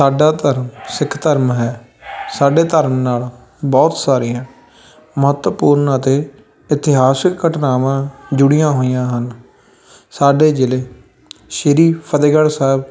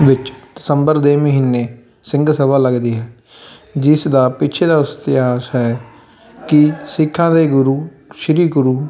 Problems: constant background noise, continuous background conversations